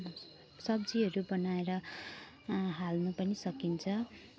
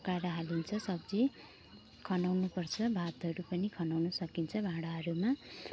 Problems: background sounds at intervals